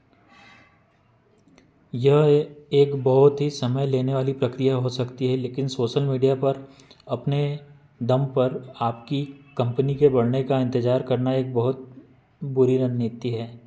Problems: constant background noise